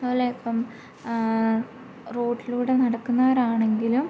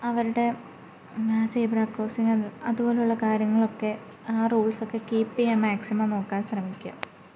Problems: low volume